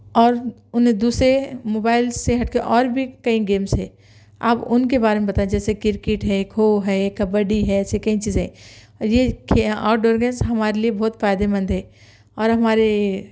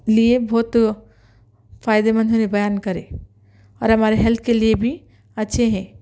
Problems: none marked